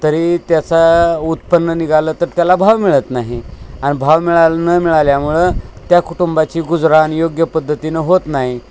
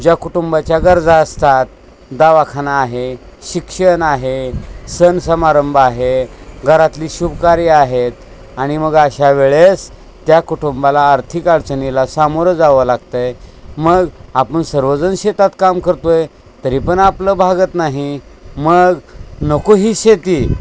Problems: constant background noise